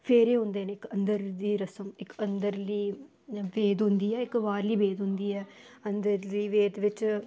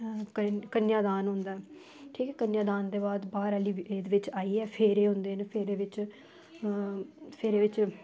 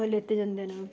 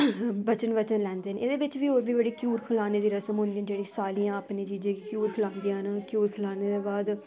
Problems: constant background noise